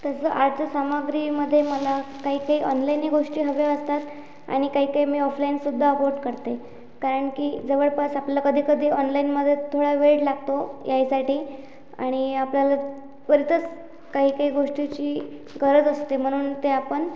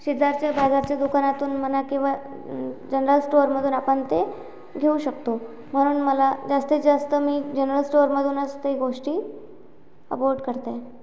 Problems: none marked